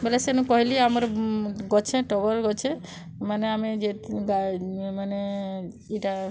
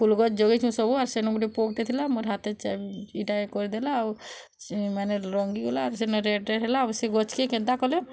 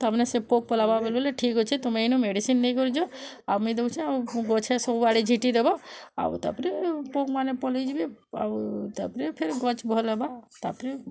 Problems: constant background noise